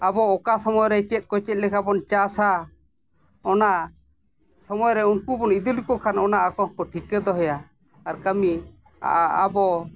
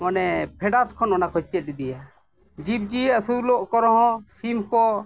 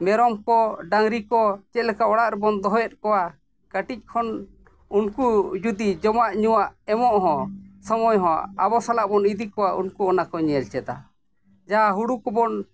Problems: none marked